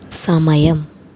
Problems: none marked